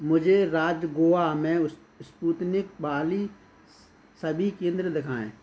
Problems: constant background noise